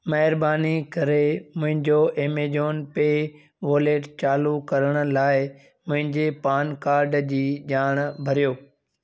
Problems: none marked